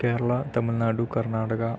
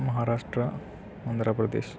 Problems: none marked